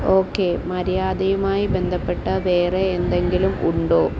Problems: constant background noise